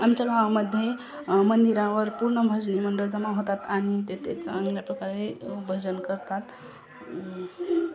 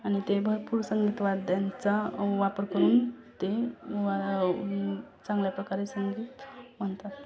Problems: background sounds at intervals, continuous background conversations